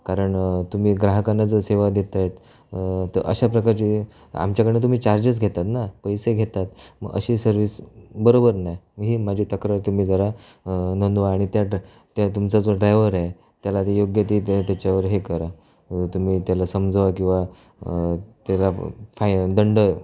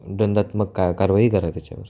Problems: none marked